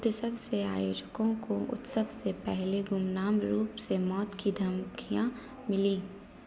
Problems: none marked